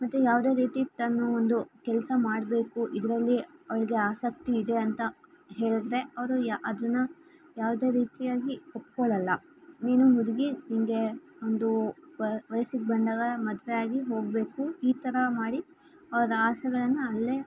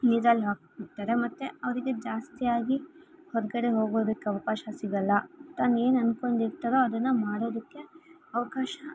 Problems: background sounds at intervals